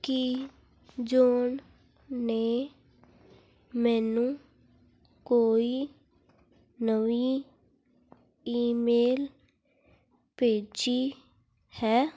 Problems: background conversations at intervals